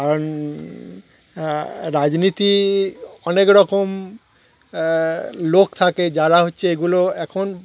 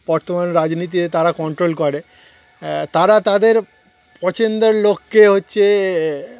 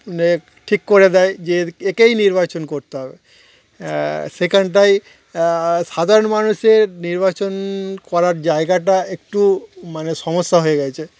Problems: none marked